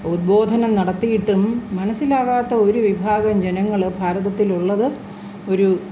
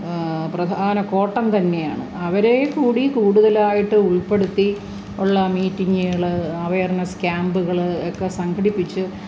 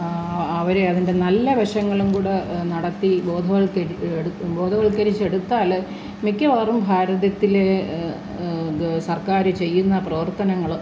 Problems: constant background noise